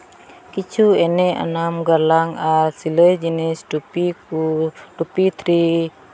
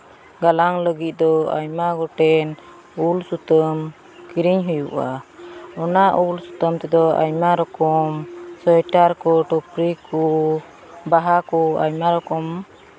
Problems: background sounds at intervals